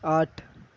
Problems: none marked